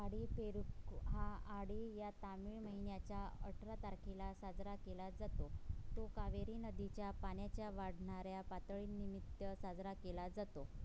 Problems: constant background noise, low volume